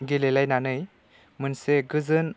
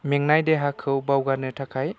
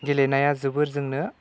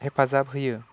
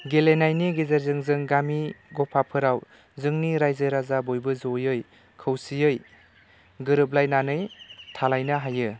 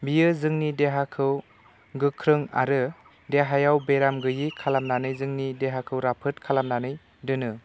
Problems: none marked